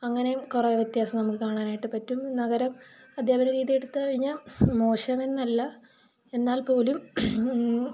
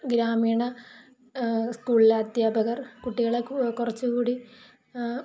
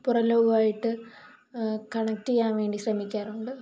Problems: none marked